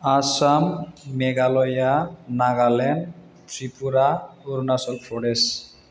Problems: none marked